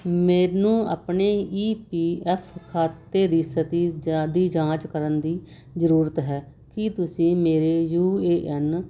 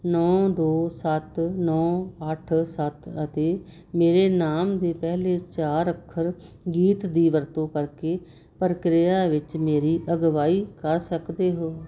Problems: constant background noise